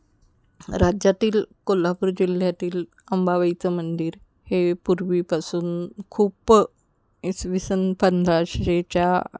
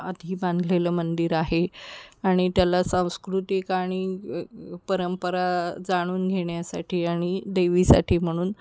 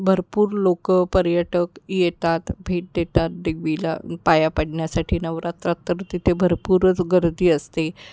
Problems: none marked